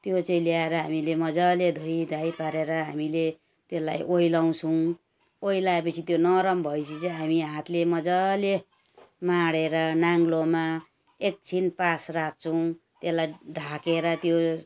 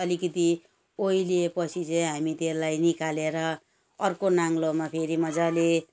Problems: background sounds at intervals